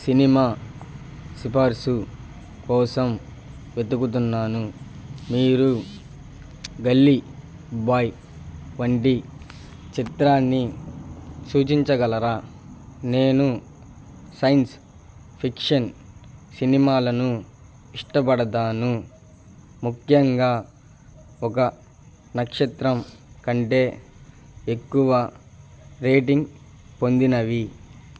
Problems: background sounds at intervals